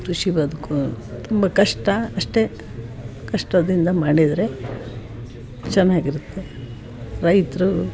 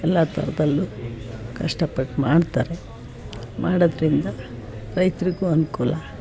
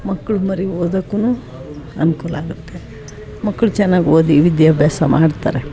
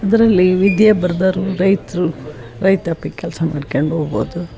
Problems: background sounds at intervals, background conversations at intervals